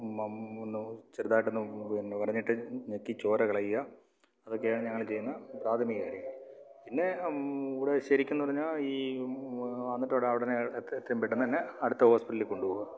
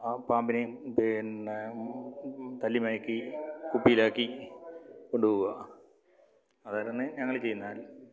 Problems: low volume